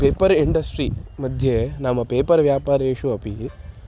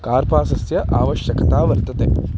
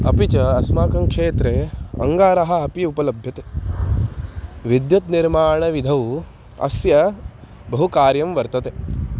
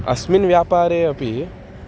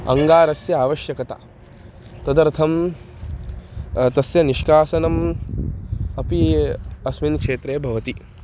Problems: none marked